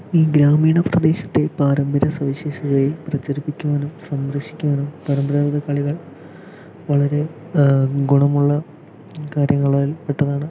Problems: low volume